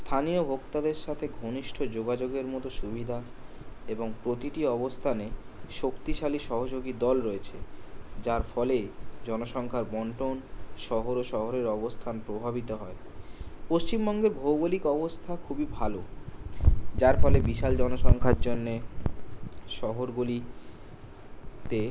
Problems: none marked